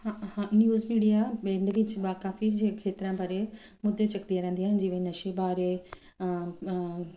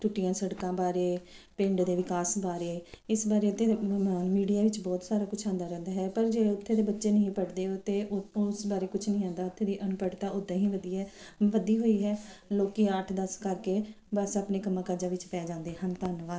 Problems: background sounds at intervals